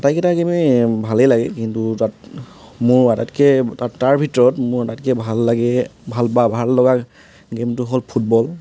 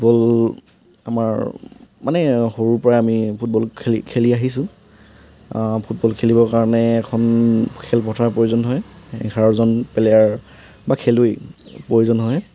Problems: constant background noise